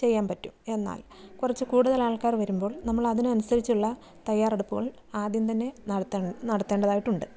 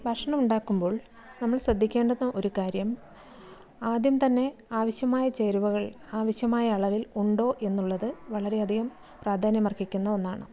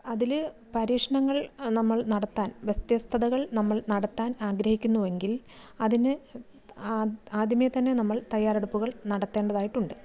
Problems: none marked